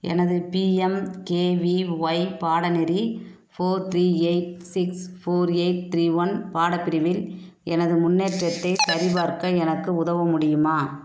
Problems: constant background noise